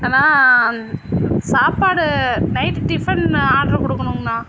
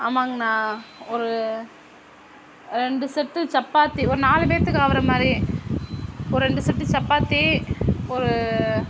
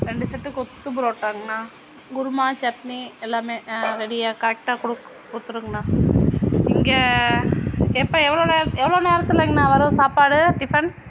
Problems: constant background noise